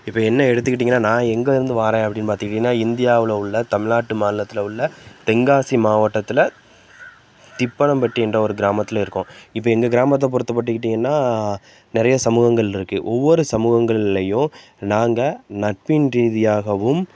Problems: constant background noise